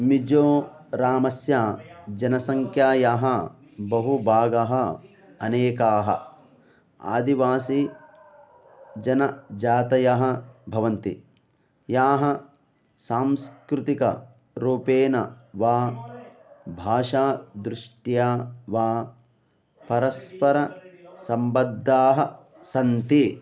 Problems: background sounds at intervals